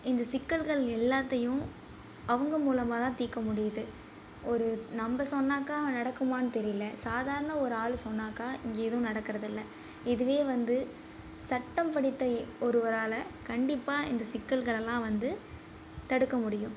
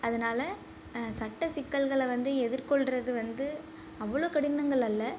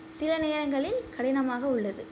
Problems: low volume